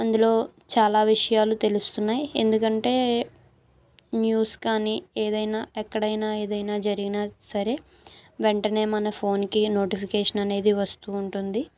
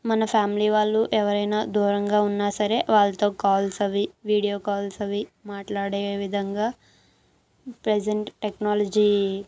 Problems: background sounds at intervals